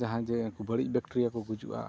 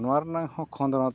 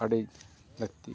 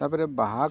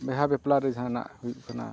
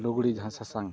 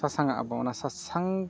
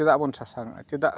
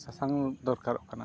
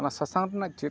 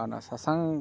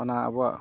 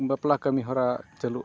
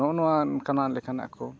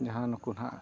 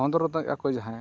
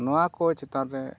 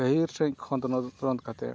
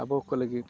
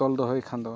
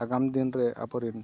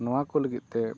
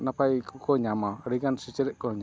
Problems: constant background noise